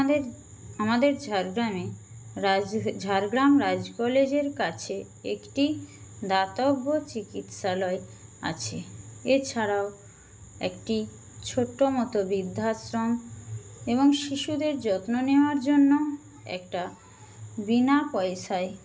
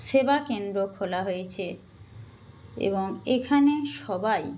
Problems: constant background noise